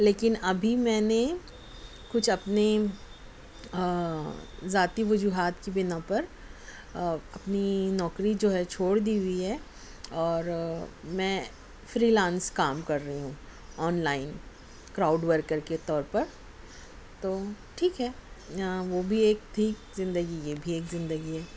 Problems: none marked